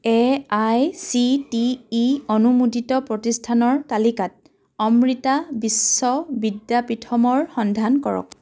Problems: background sounds at intervals